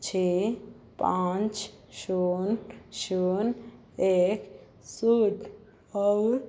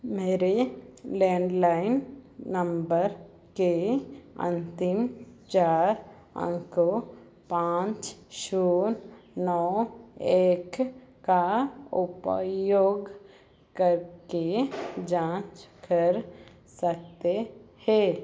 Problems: none marked